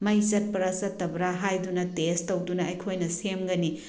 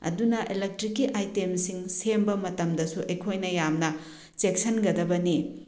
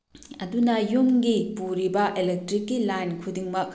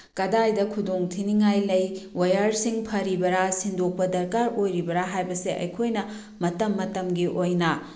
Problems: none marked